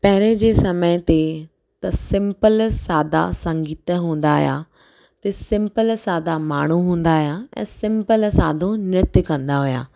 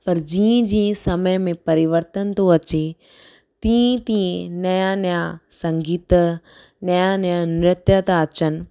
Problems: none marked